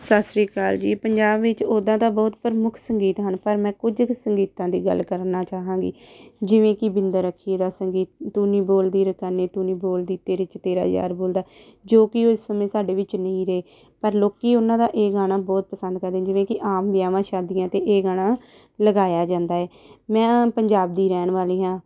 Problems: background sounds at intervals